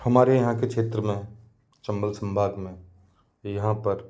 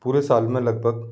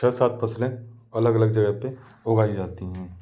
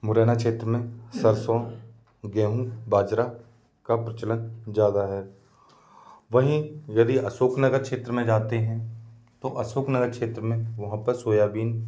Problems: none marked